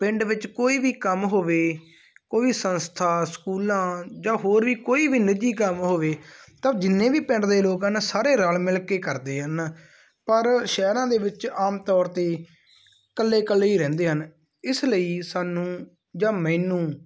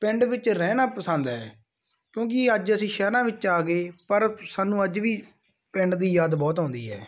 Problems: none marked